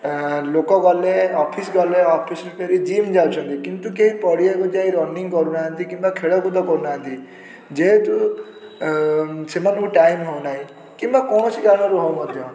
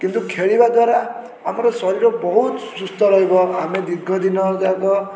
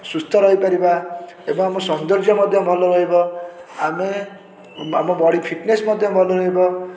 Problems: constant background noise